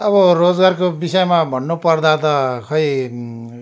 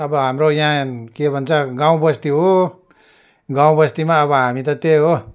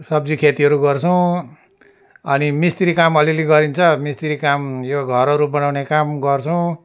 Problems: constant background noise